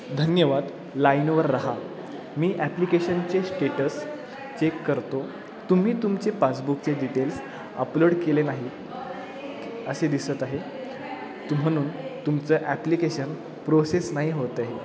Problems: constant background noise